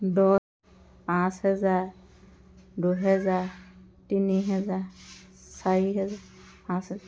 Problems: constant background noise, background conversations at intervals